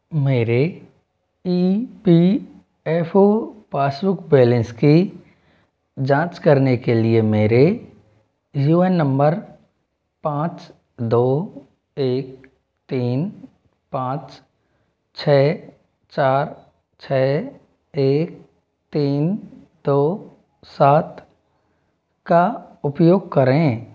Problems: constant background noise